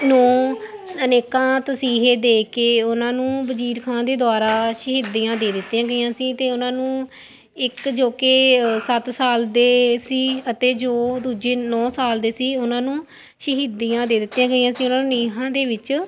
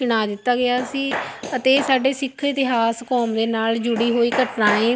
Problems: constant background noise